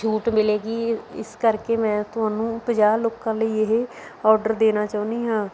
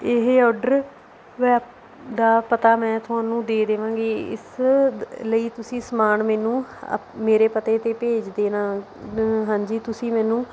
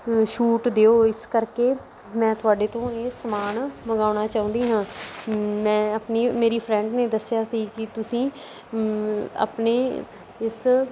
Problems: none marked